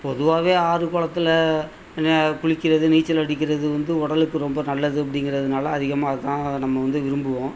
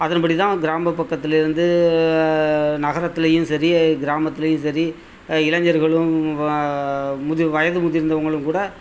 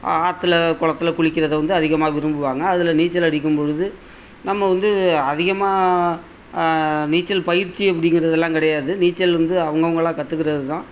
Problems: constant background noise